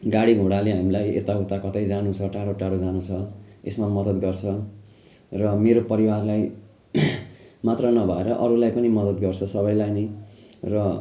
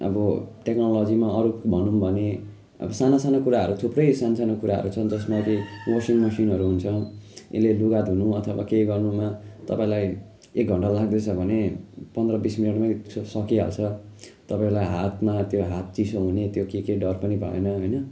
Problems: constant background noise